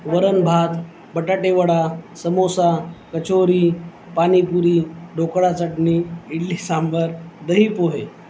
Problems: constant background noise, background conversations at intervals